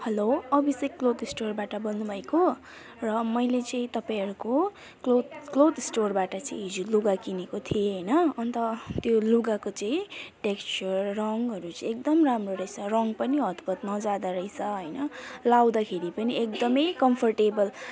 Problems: continuous background conversations